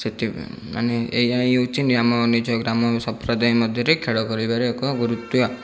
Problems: none marked